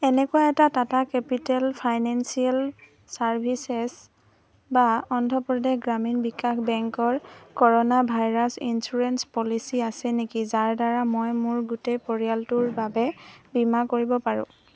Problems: none marked